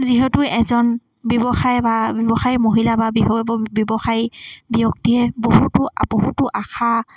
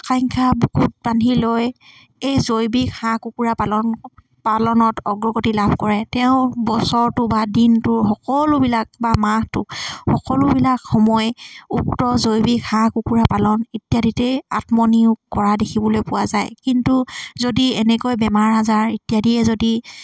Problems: constant background noise